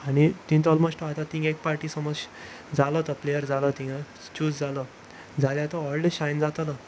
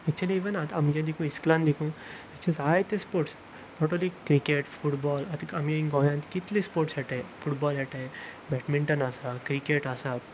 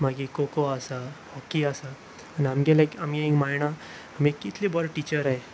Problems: constant background noise